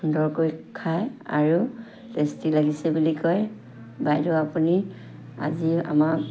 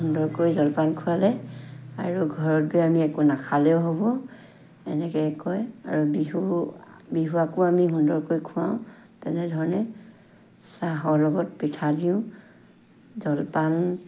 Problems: constant background noise